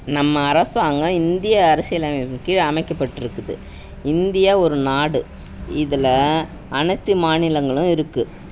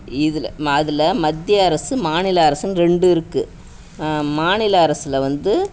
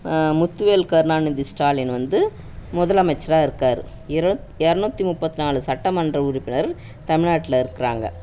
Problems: background sounds at intervals